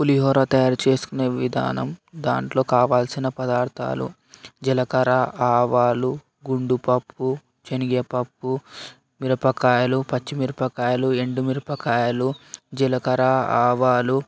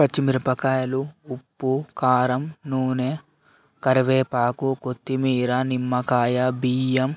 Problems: constant background noise